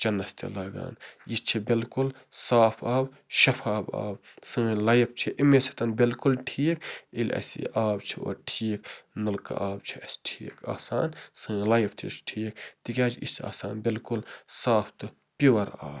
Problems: constant background noise